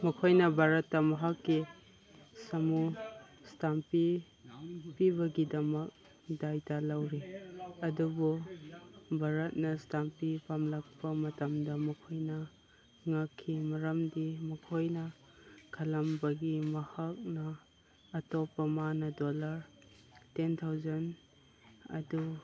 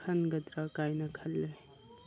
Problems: background conversations at intervals